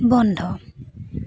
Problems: background sounds at intervals